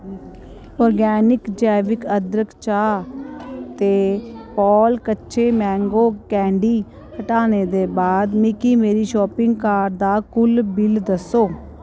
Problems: none marked